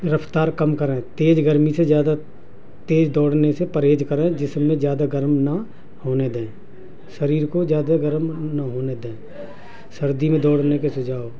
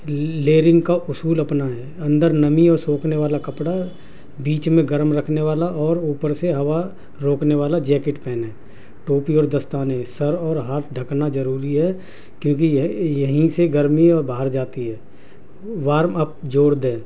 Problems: constant background noise